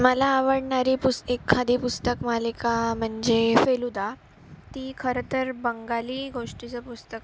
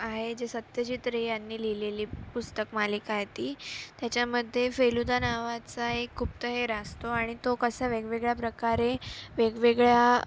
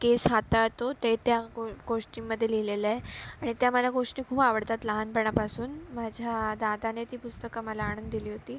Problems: background sounds at intervals